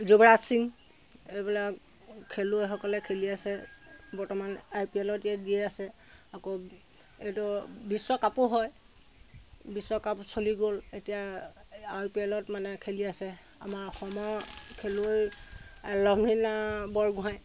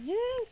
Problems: constant background noise